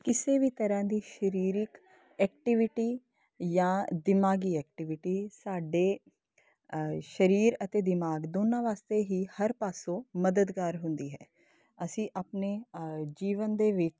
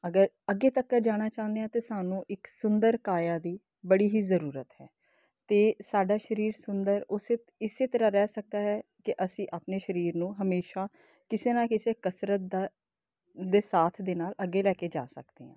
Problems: constant background noise